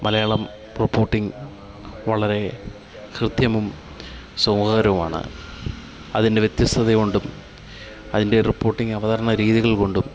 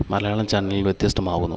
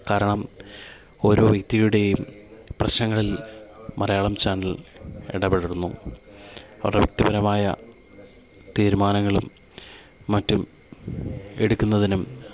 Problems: continuous background conversations